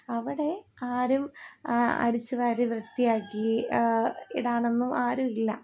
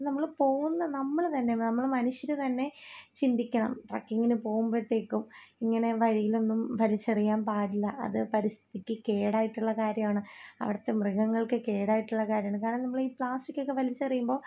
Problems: low volume